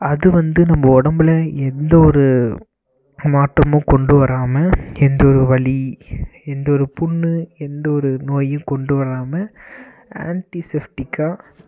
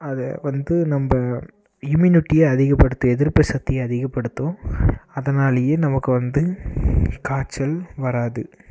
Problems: none marked